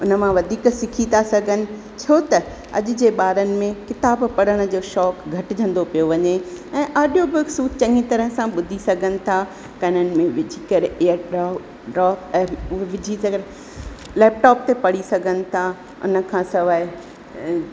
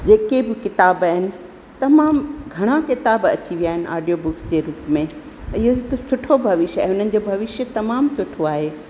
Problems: constant background noise, echo